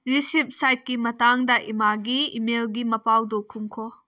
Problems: none marked